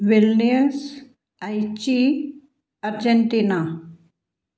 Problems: none marked